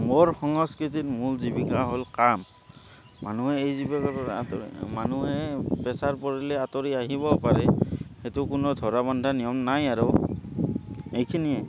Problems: constant background noise